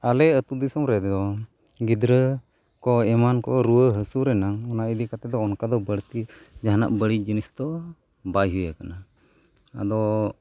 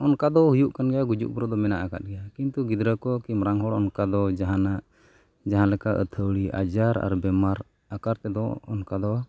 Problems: background sounds at intervals